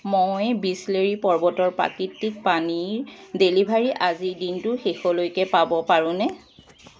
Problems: constant background noise